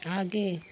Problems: constant background noise